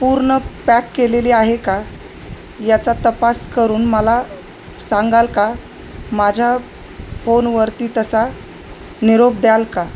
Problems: constant background noise